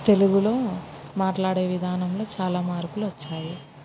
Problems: background sounds at intervals